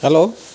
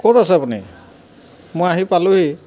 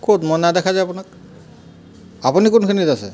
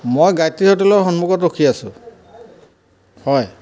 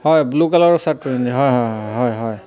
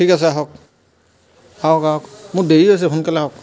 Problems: background sounds at intervals